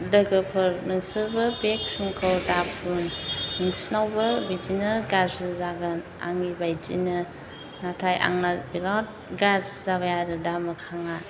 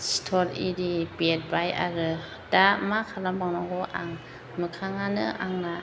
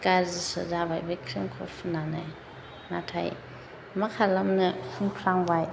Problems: constant background noise